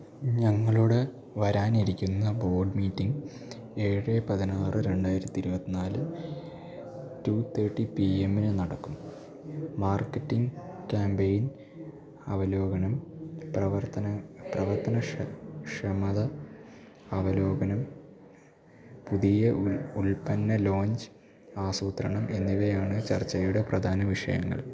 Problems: low volume